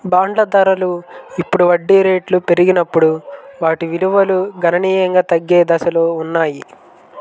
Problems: background sounds at intervals